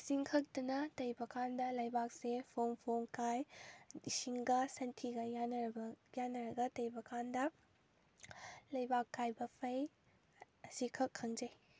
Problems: none marked